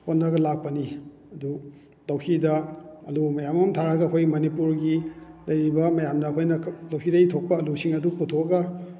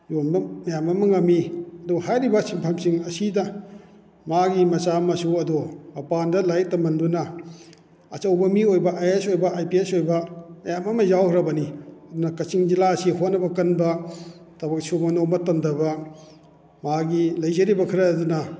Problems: none marked